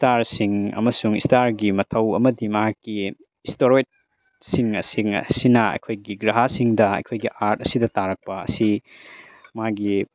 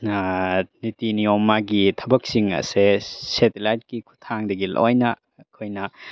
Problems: background sounds at intervals